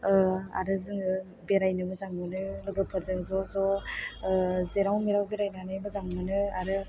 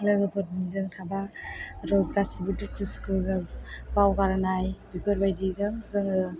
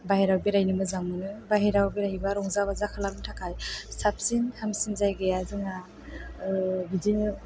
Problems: background sounds at intervals